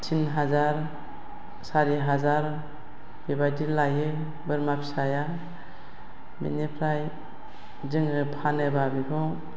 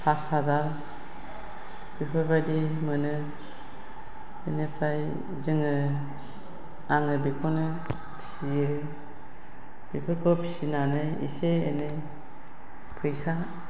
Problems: none marked